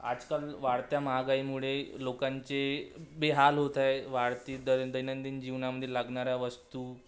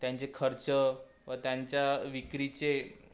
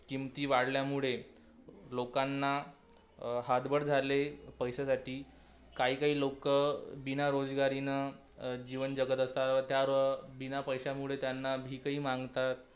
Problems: constant background noise